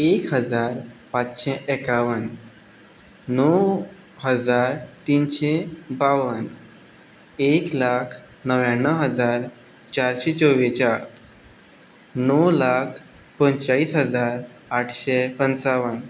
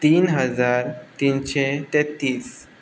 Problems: none marked